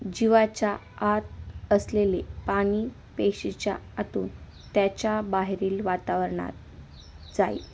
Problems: constant background noise, continuous background conversations